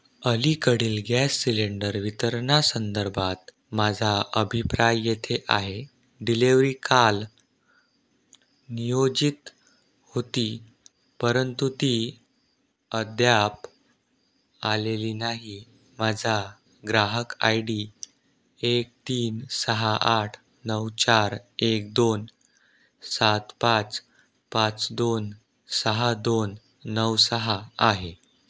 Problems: none marked